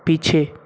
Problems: none marked